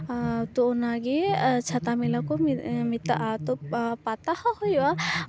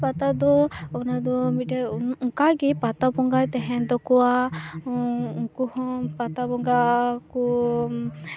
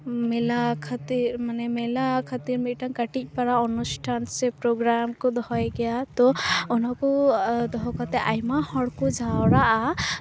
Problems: constant background noise, continuous background conversations